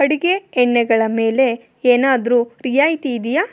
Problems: none marked